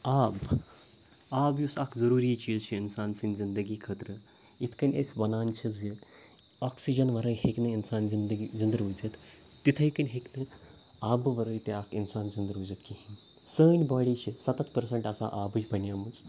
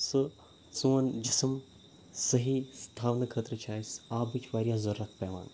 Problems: background sounds at intervals